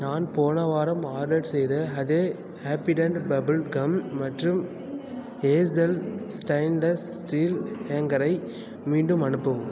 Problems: continuous background conversations